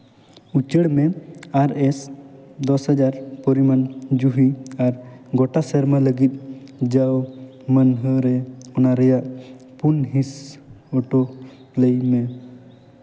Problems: background sounds at intervals, echo